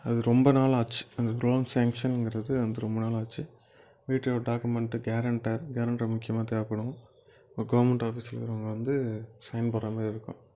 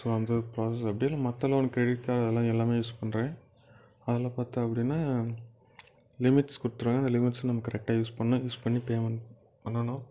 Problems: background sounds at intervals